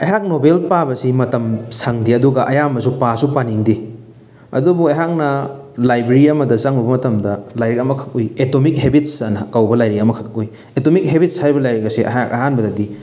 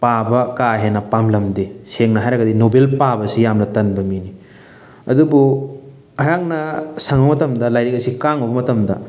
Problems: background sounds at intervals